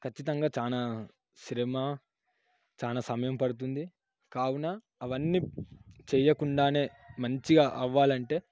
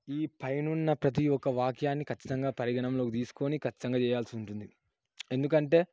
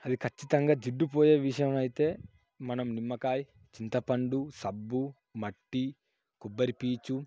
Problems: none marked